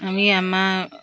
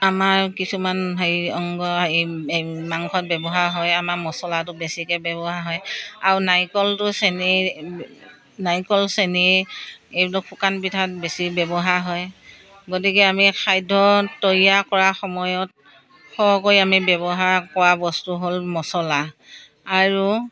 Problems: none marked